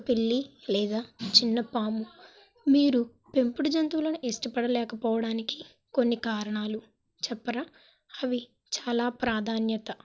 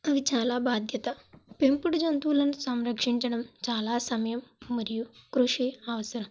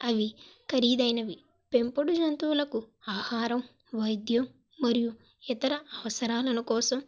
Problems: background sounds at intervals